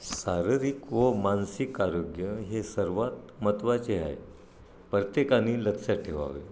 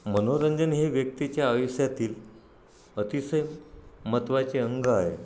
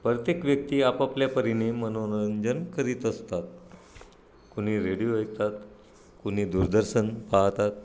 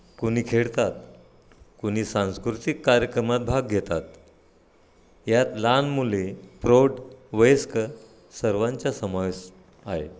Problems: none marked